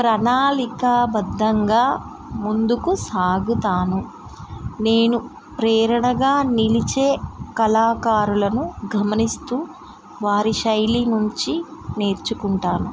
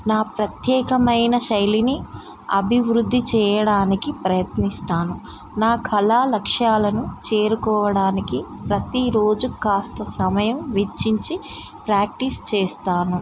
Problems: constant background noise